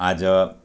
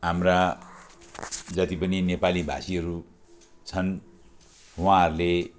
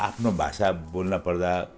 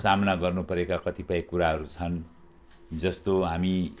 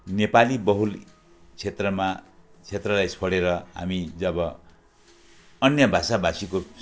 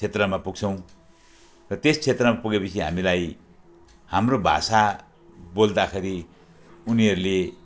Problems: none marked